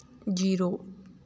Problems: none marked